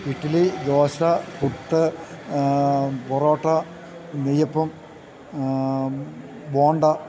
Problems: constant background noise